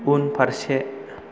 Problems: constant background noise